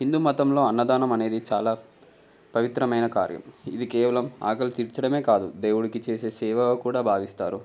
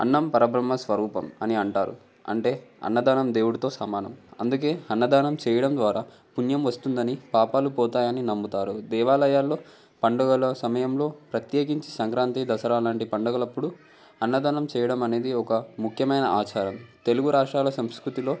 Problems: background conversations at intervals